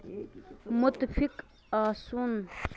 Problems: none marked